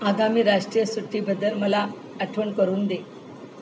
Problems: constant background noise